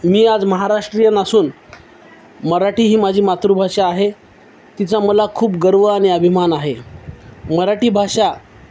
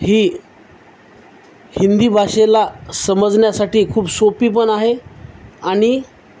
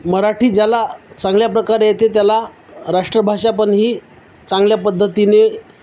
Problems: constant background noise